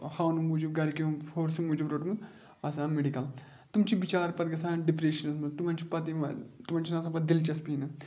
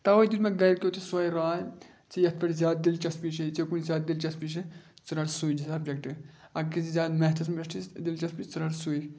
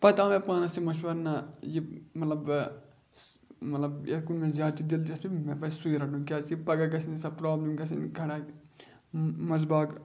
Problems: background sounds at intervals